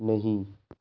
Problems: low volume